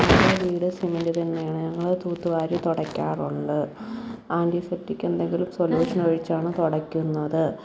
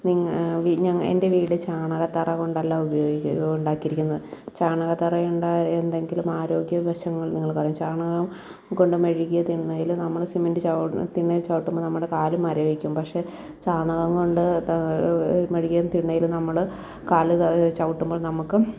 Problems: background sounds at intervals, low volume